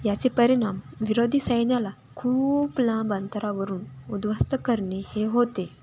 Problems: none marked